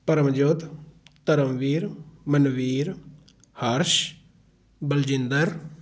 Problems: constant background noise